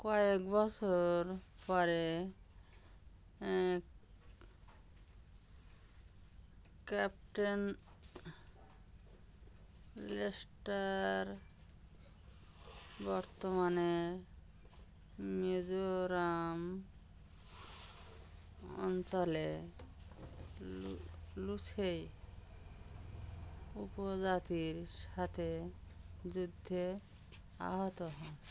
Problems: constant background noise